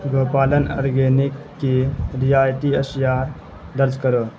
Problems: constant background noise